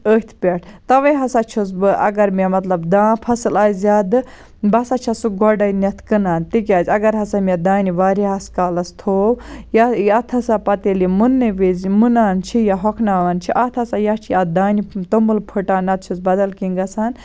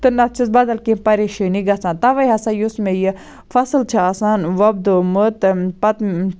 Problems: none marked